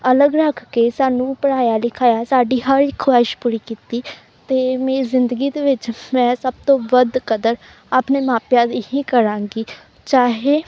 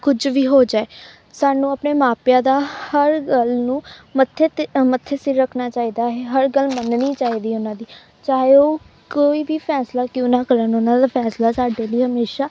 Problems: background sounds at intervals